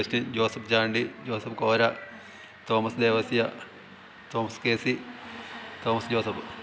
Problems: constant background noise